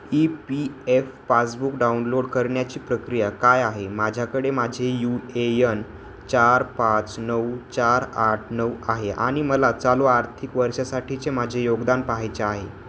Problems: constant background noise